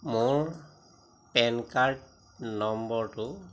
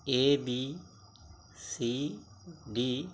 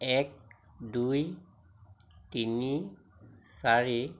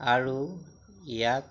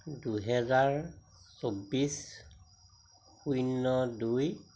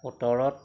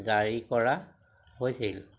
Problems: constant background noise